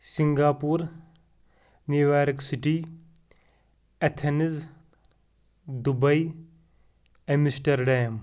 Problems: background sounds at intervals